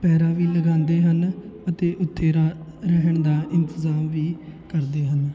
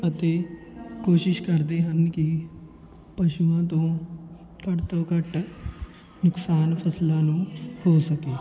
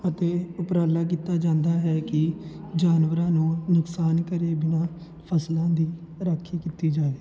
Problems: continuous background conversations